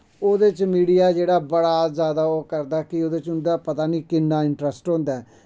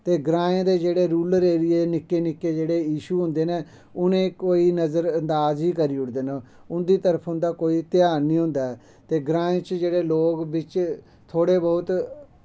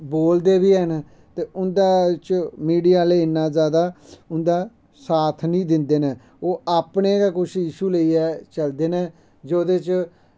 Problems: none marked